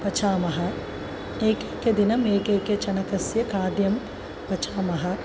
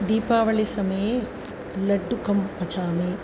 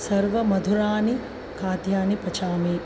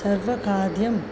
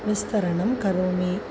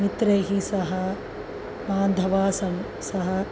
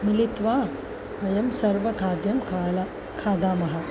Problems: constant background noise